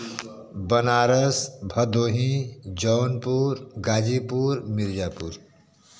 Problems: none marked